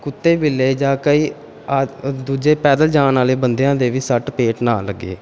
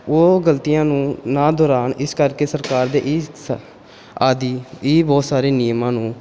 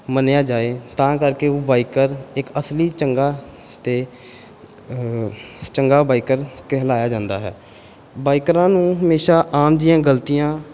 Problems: none marked